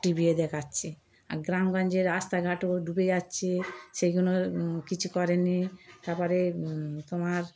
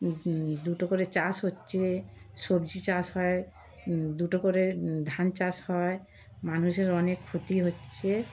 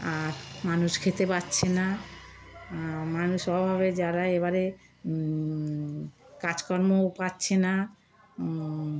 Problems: background sounds at intervals